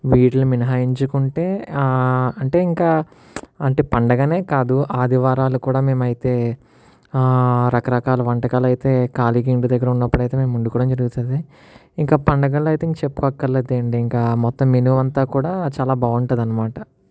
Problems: none marked